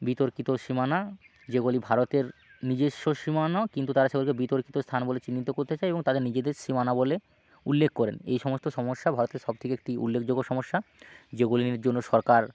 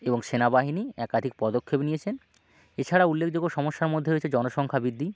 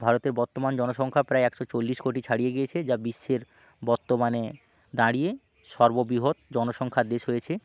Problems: background sounds at intervals, background conversations at intervals